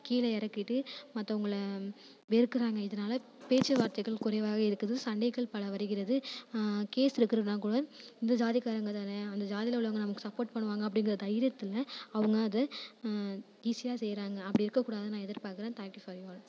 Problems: none marked